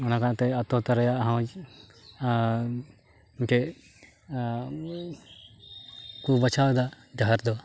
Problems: background sounds at intervals